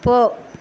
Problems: constant background noise